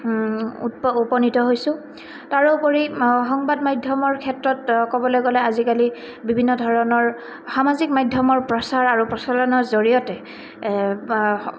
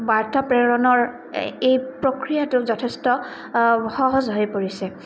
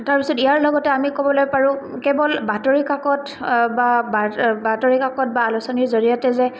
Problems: none marked